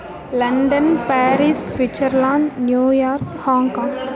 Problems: continuous background conversations